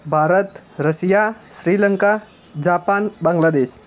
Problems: constant background noise